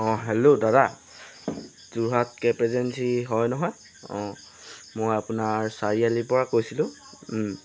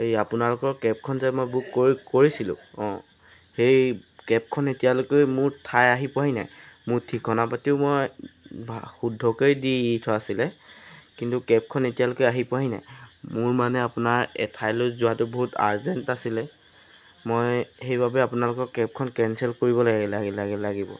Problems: constant background noise